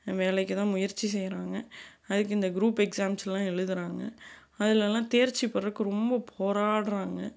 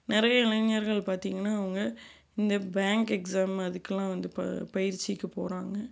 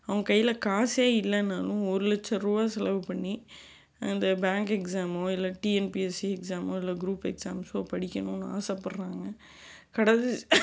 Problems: background sounds at intervals